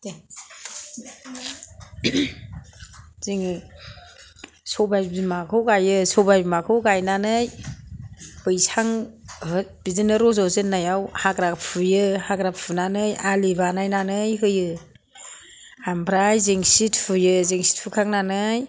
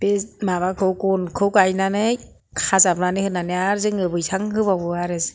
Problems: none marked